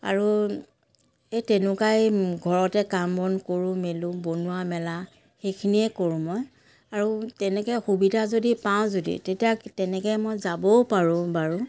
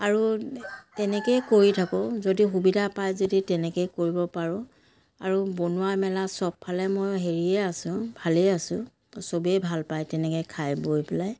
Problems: background sounds at intervals, background conversations at intervals